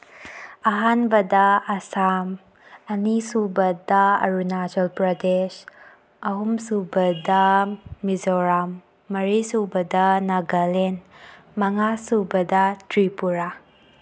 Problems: background sounds at intervals